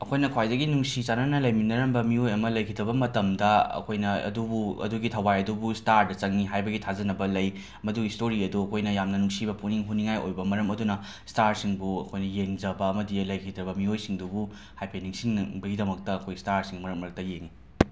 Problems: background sounds at intervals